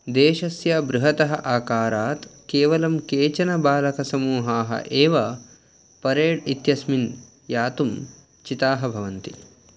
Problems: none marked